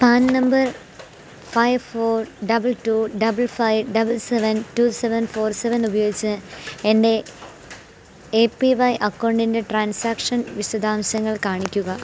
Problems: constant background noise